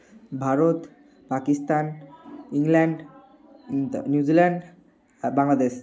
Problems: background sounds at intervals, background conversations at intervals